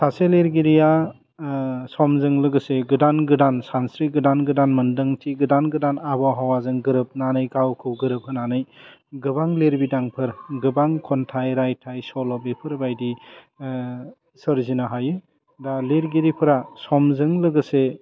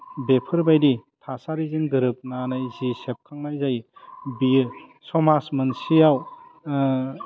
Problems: none marked